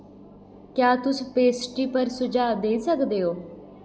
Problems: echo